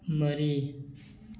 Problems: none marked